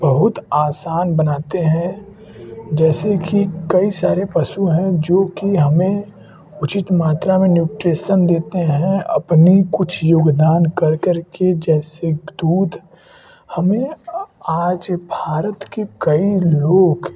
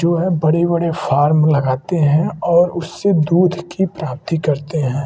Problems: none marked